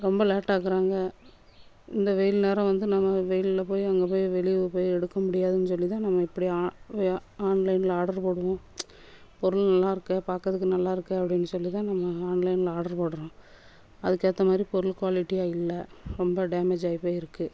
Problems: background sounds at intervals